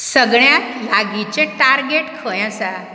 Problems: background sounds at intervals